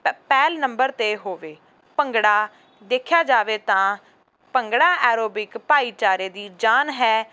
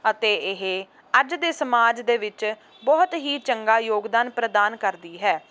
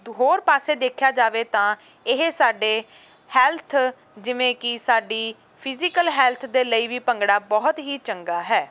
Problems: none marked